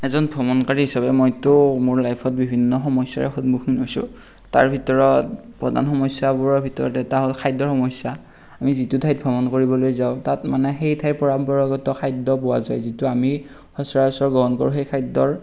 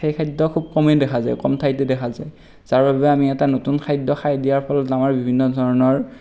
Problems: none marked